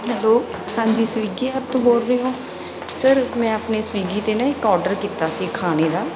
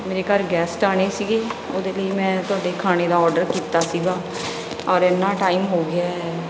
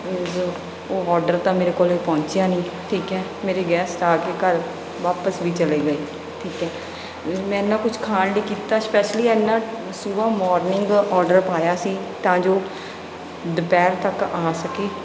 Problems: none marked